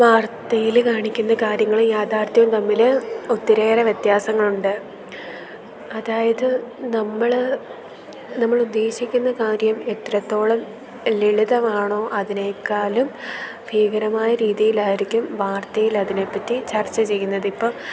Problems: background sounds at intervals